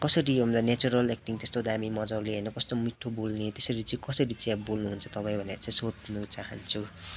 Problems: none marked